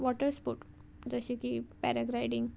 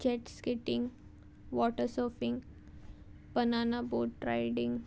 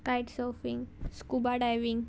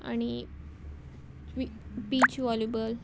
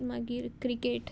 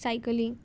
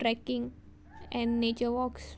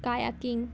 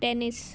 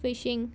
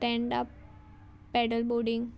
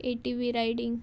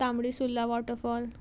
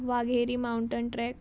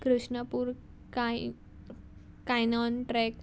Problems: background sounds at intervals